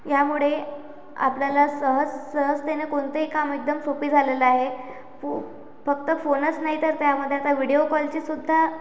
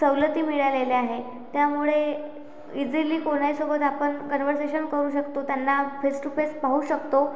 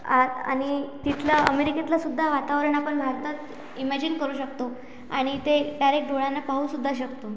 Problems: constant background noise